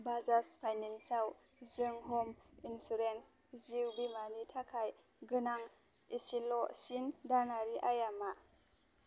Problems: none marked